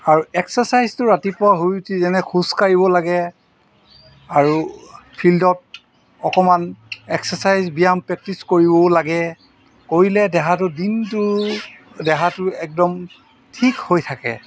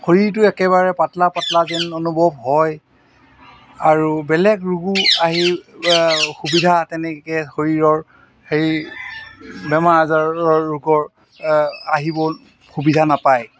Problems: background sounds at intervals